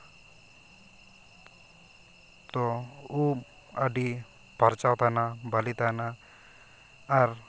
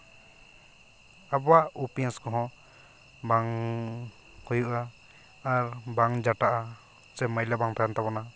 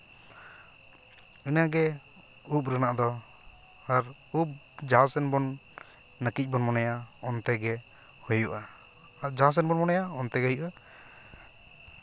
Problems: constant background noise